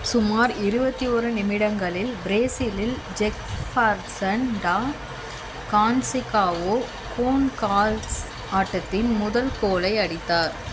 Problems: constant background noise